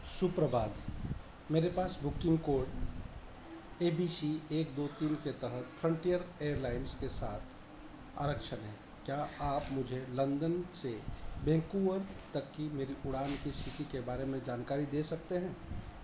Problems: background sounds at intervals